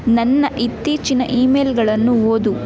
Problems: background sounds at intervals